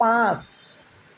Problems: constant background noise